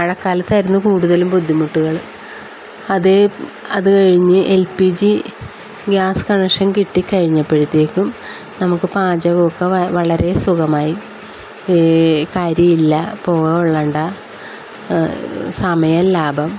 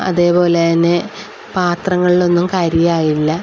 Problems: constant background noise